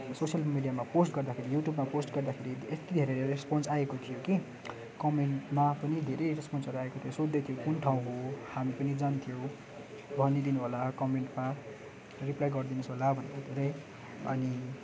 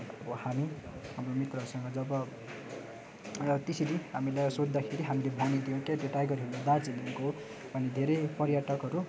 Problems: constant background noise